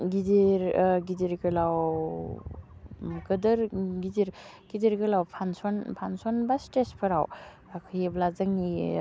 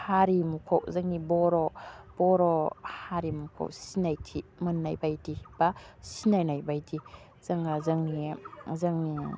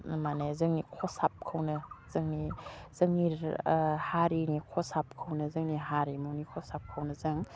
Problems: constant background noise